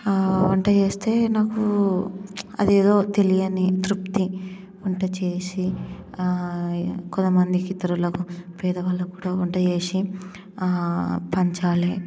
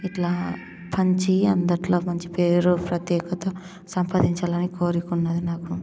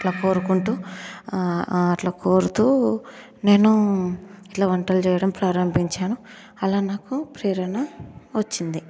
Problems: constant background noise